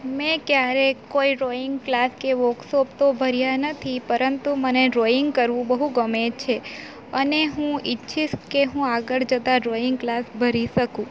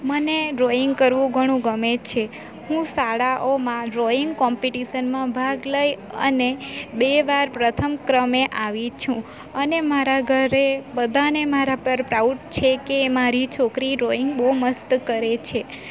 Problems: constant background noise